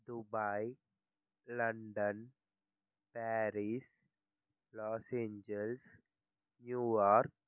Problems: low volume